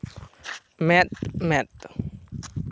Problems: constant background noise